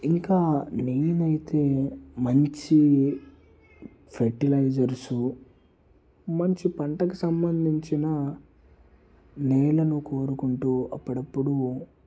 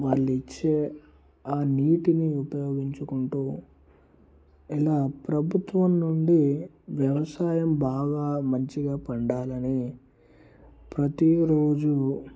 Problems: low volume